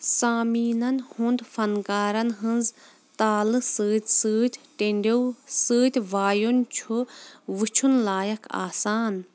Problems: constant background noise